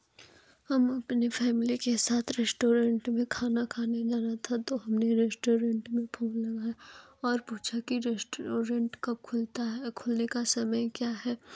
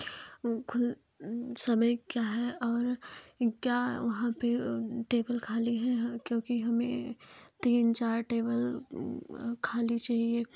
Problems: constant background noise